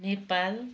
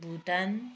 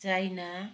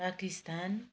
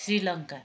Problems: background sounds at intervals